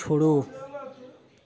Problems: none marked